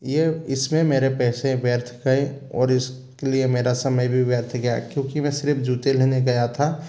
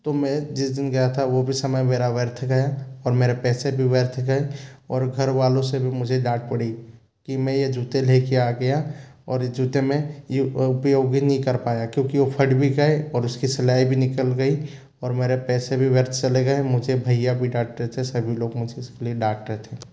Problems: constant background noise